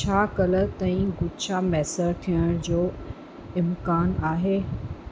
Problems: constant background noise